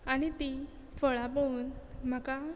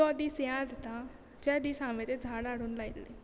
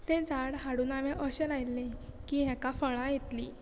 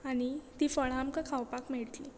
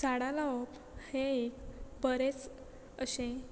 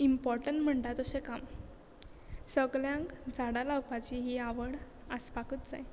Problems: background sounds at intervals